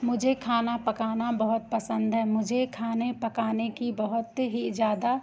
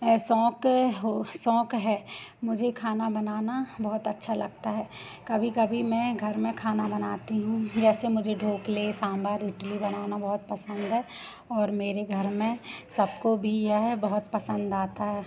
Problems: none marked